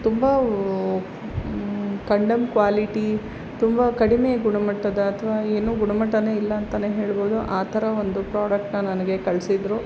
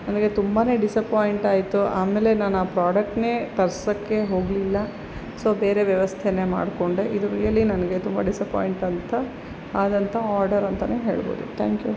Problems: constant background noise